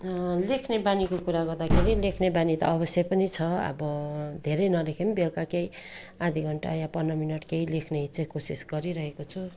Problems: continuous background conversations